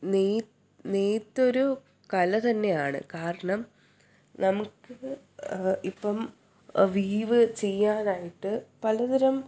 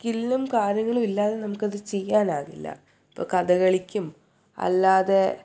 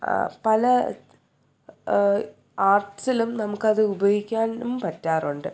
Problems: none marked